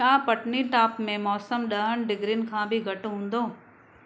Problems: none marked